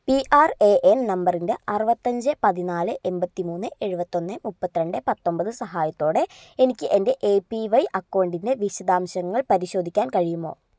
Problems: low volume